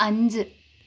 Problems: constant background noise